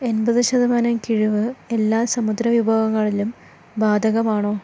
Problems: none marked